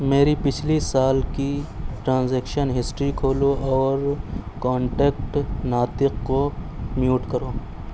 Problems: none marked